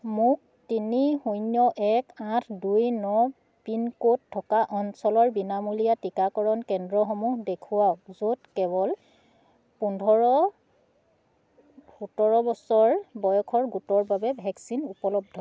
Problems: none marked